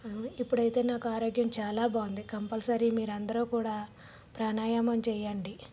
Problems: background sounds at intervals